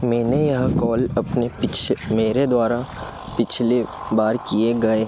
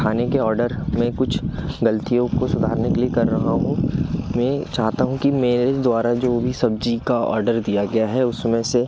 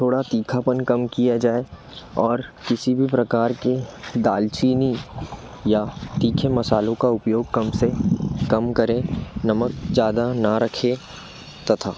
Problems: background sounds at intervals